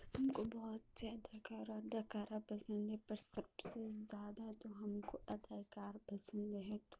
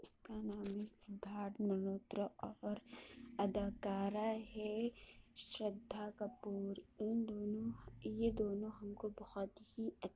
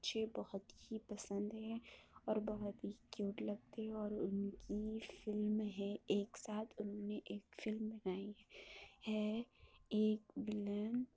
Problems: constant background noise, low volume